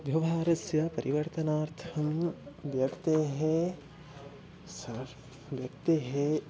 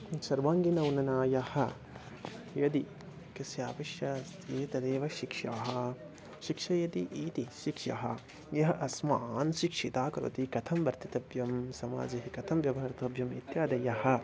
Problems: constant background noise